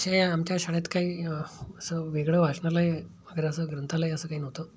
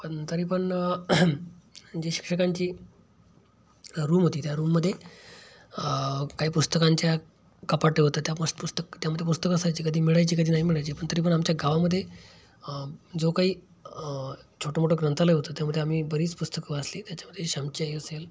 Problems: background sounds at intervals